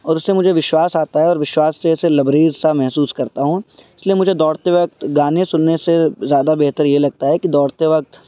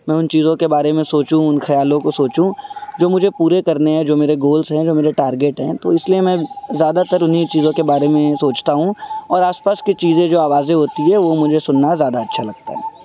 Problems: constant background noise